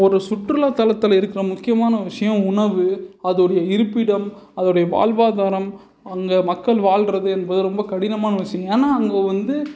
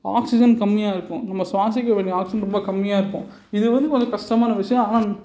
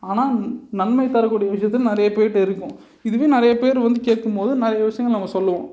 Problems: background sounds at intervals